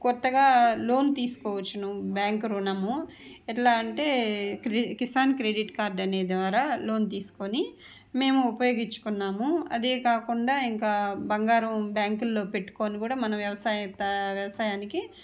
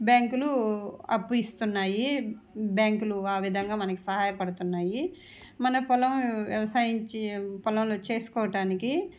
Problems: none marked